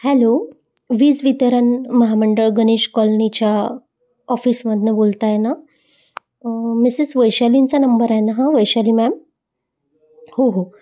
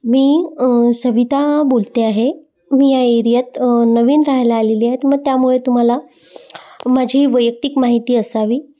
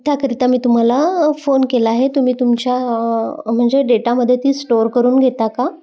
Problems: background sounds at intervals, continuous background conversations